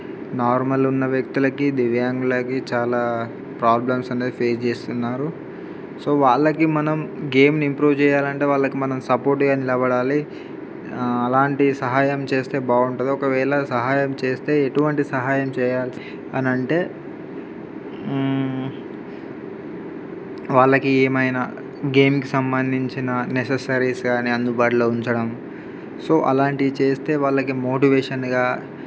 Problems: background sounds at intervals